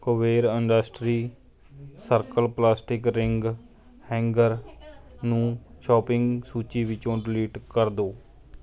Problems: background conversations at intervals